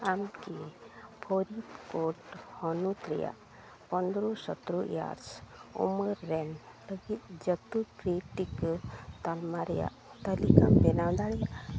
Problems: none marked